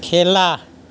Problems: constant background noise